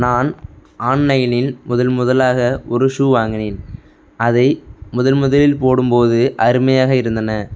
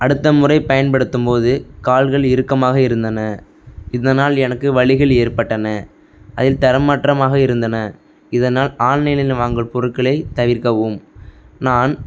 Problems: background sounds at intervals